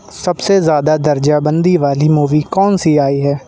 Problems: constant background noise